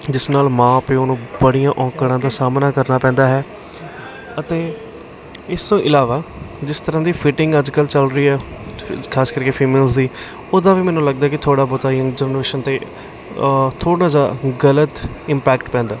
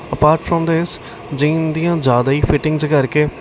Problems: constant background noise